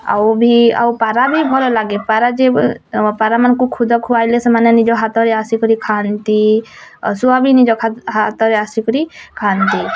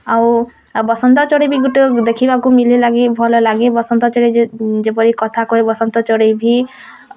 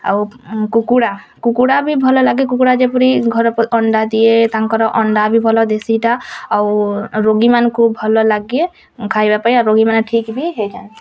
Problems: constant background noise, continuous background conversations